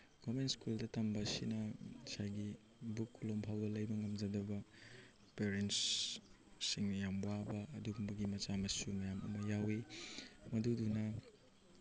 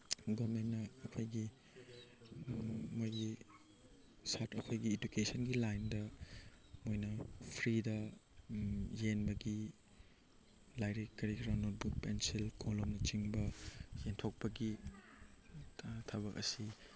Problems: background sounds at intervals